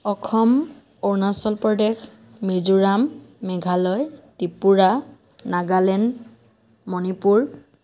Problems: none marked